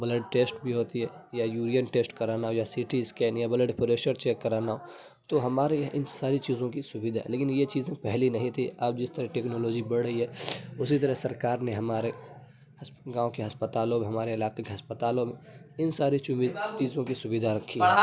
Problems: constant background noise